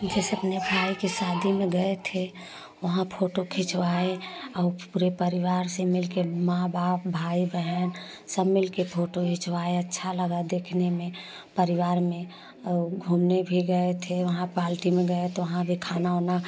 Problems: constant background noise, background conversations at intervals